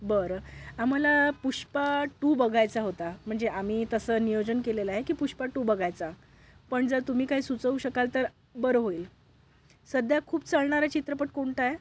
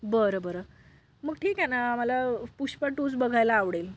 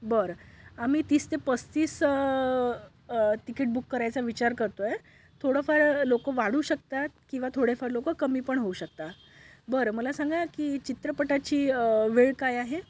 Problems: none marked